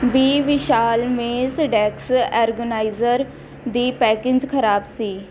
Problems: constant background noise